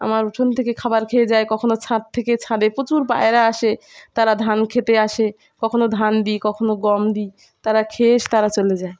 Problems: background sounds at intervals, background conversations at intervals